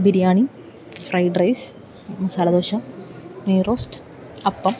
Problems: constant background noise